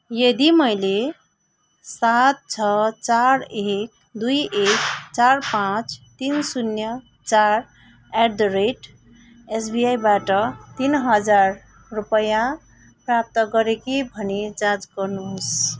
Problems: none marked